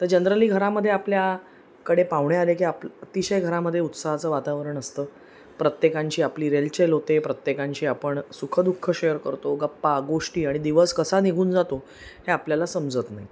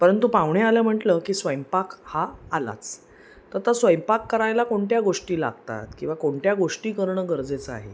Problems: constant background noise